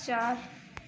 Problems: constant background noise